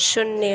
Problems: constant background noise